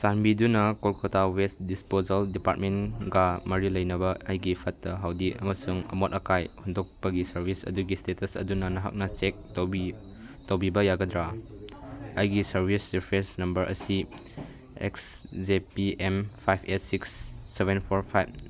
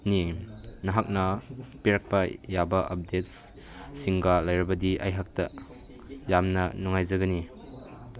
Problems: background conversations at intervals